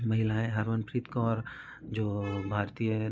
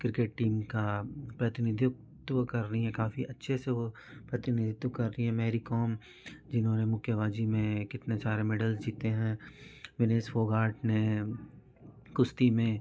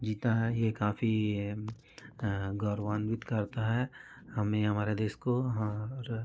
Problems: continuous background conversations